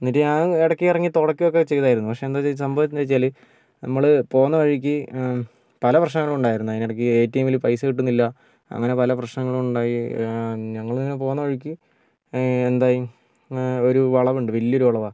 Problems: none marked